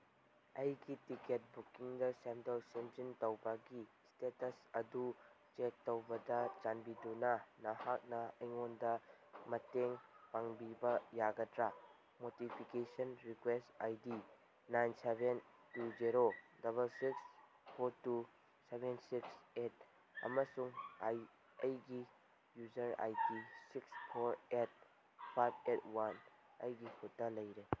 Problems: background sounds at intervals